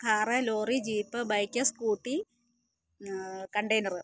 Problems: low volume